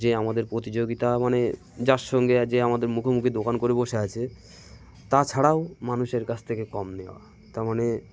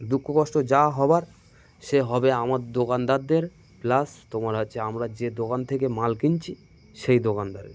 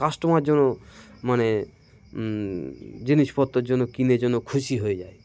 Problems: constant background noise, continuous background conversations